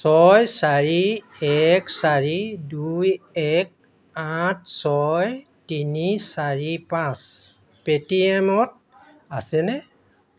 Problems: constant background noise, background conversations at intervals